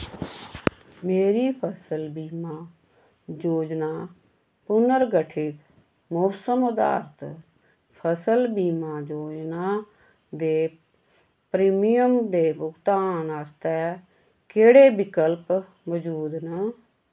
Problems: none marked